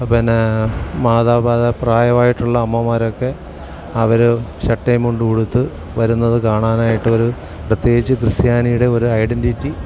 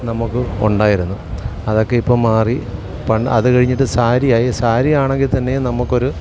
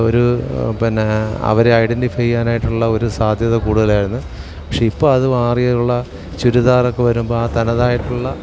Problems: background sounds at intervals